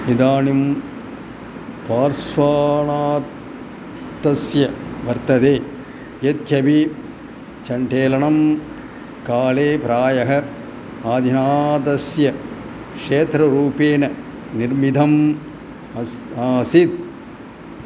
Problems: none marked